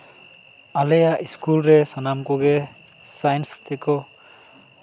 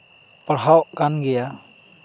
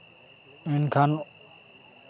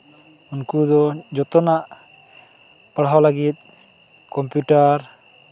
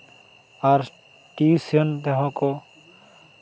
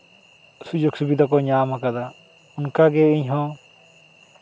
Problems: none marked